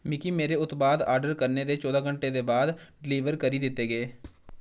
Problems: none marked